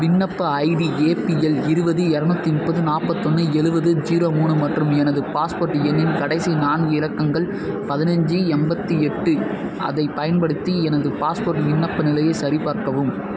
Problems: constant background noise